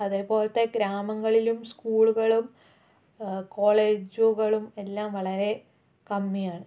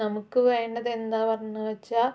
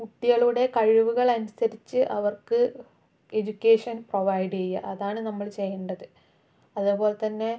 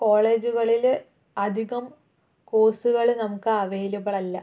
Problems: low volume